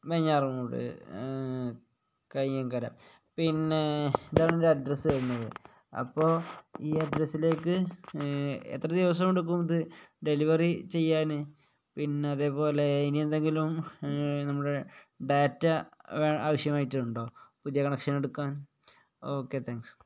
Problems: none marked